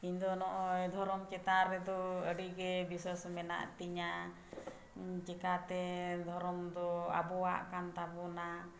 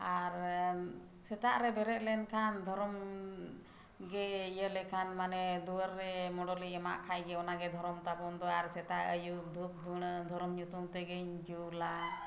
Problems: background sounds at intervals